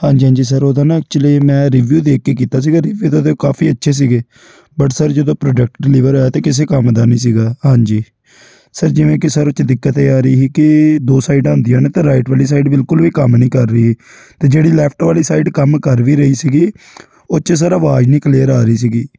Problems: background sounds at intervals